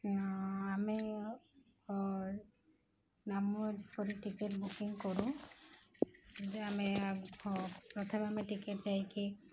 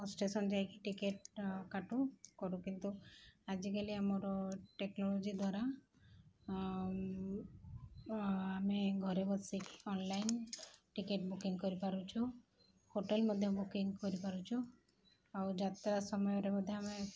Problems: background sounds at intervals